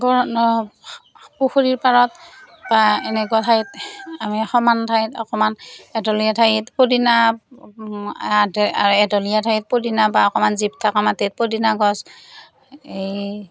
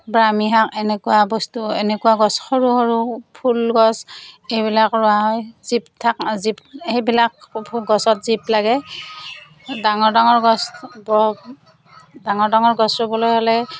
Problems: none marked